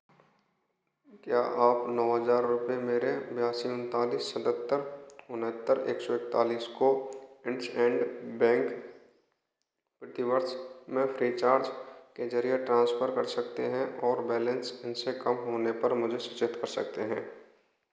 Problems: echo